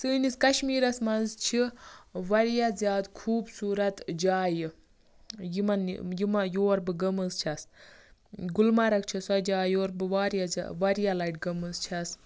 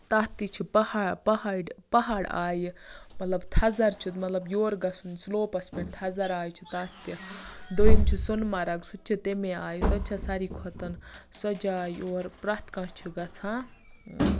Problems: background sounds at intervals